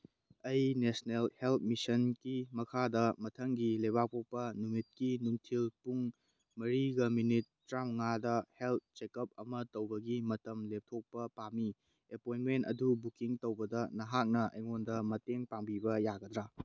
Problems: none marked